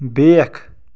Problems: background sounds at intervals